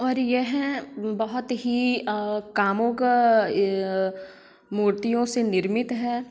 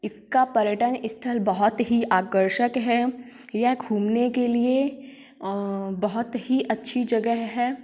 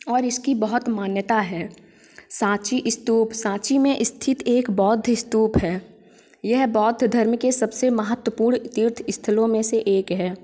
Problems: none marked